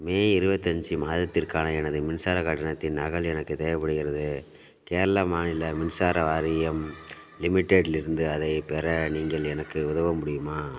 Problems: background sounds at intervals